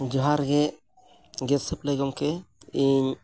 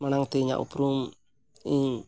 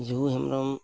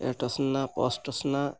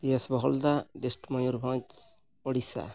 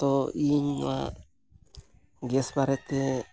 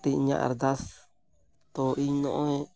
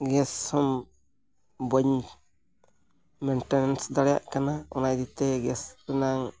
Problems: background sounds at intervals